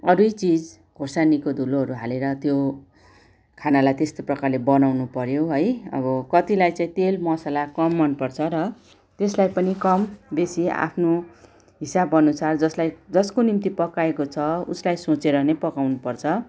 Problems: background sounds at intervals